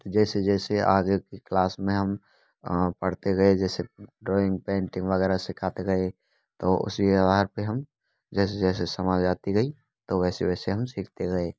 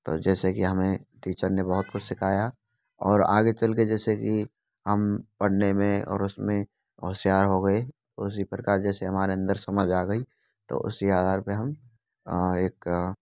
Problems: constant background noise